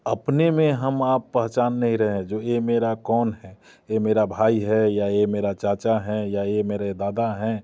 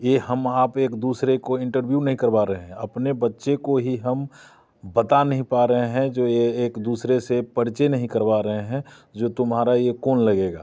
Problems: constant background noise